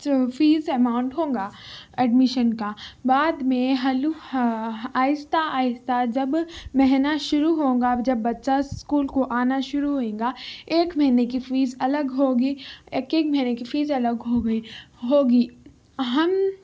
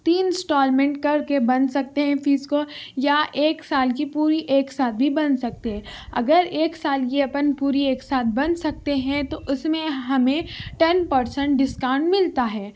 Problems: none marked